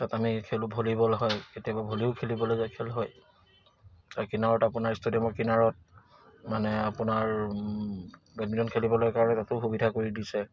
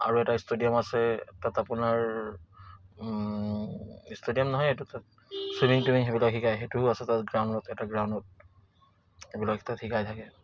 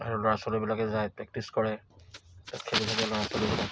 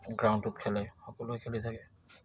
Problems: none marked